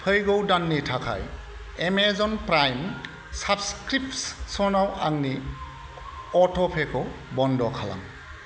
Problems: constant background noise